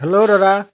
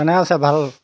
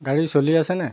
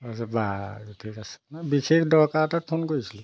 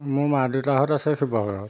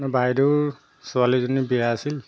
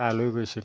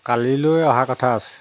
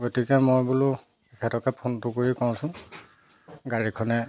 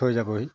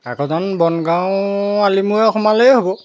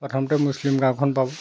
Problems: background sounds at intervals